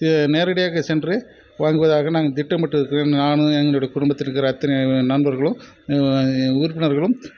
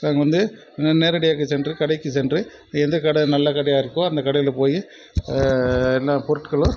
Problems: constant background noise